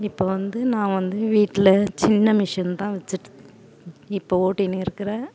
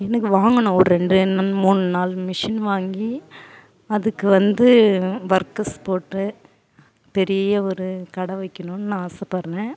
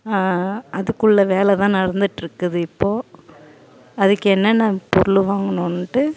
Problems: constant background noise, continuous background conversations